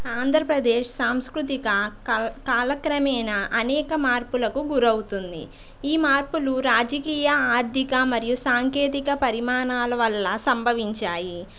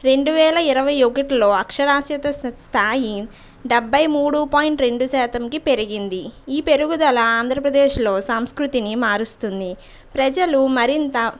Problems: background sounds at intervals